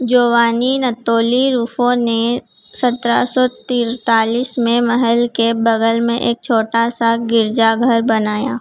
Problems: constant background noise